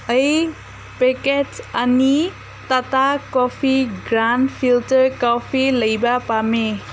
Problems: constant background noise